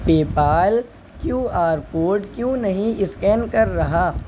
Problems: none marked